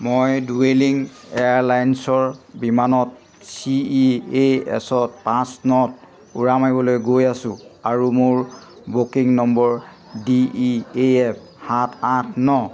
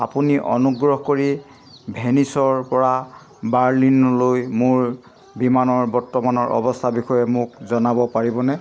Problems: none marked